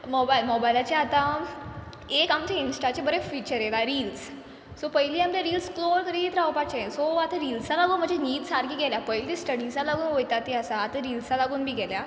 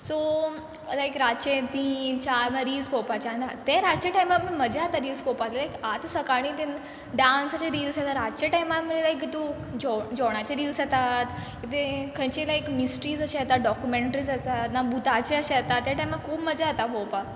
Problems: background sounds at intervals